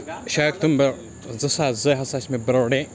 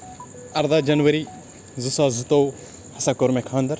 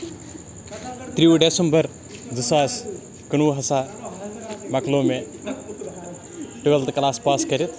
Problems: background sounds at intervals, continuous background conversations